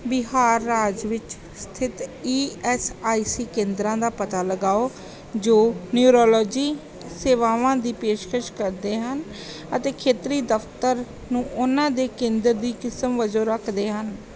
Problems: background sounds at intervals